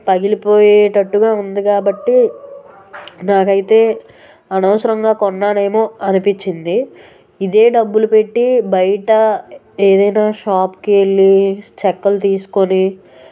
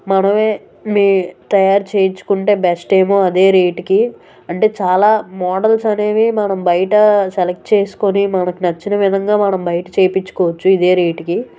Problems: background sounds at intervals, background conversations at intervals